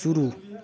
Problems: none marked